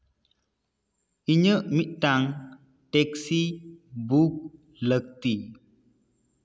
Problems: echo